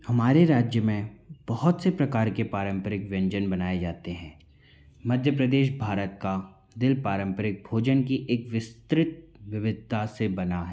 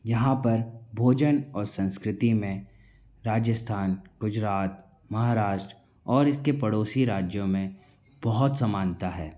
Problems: constant background noise, background conversations at intervals